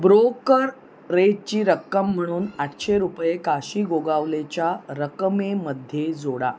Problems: constant background noise, continuous background conversations